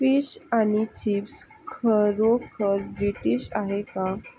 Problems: none marked